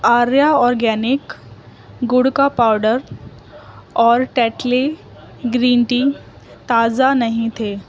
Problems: constant background noise, background conversations at intervals